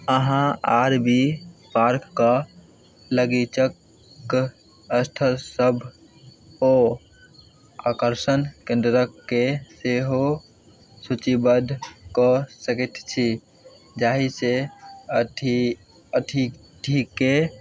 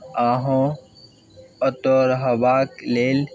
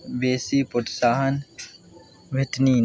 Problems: none marked